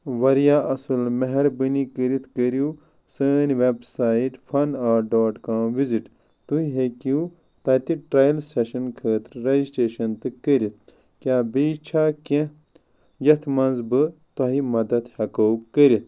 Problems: none marked